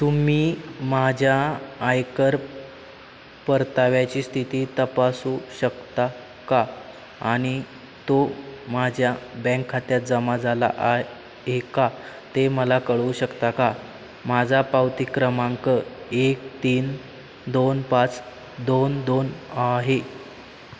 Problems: none marked